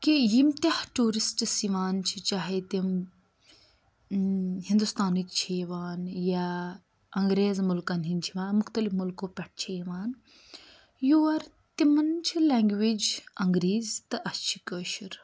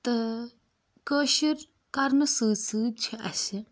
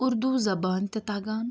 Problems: none marked